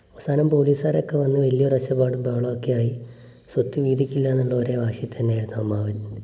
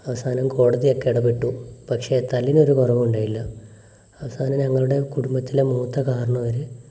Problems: none marked